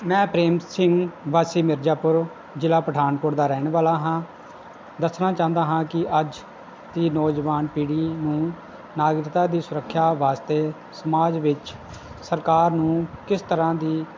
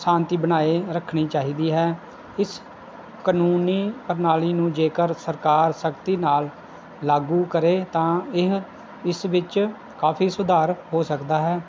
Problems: background sounds at intervals